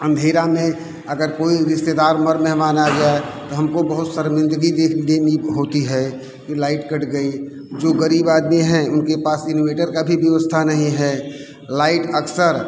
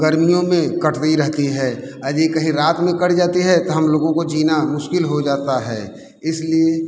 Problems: constant background noise